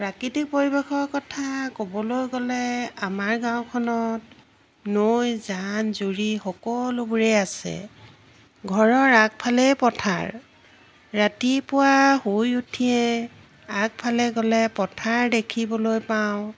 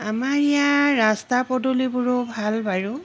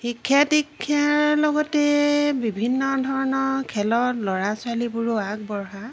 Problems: constant background noise